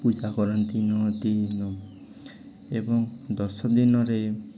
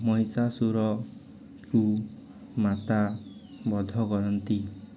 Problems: background sounds at intervals, continuous background conversations